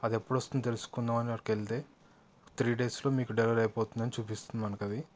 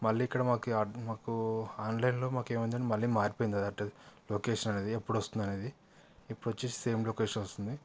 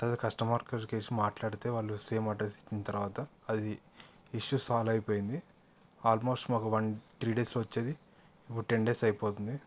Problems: background sounds at intervals, background conversations at intervals